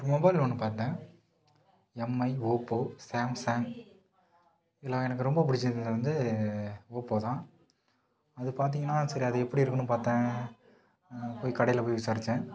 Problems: background sounds at intervals